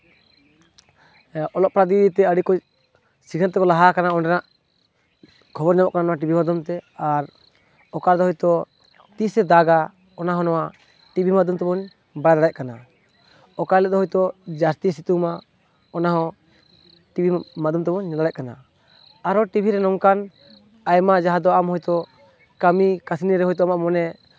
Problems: none marked